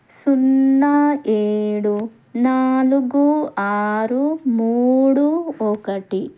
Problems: none marked